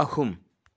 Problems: none marked